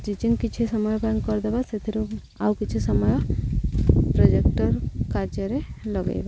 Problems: none marked